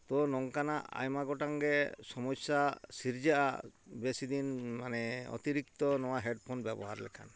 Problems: background sounds at intervals